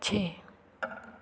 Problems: background sounds at intervals